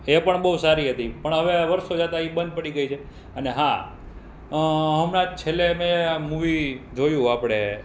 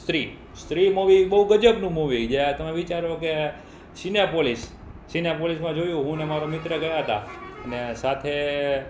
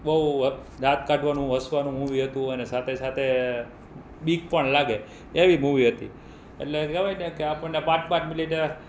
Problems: none marked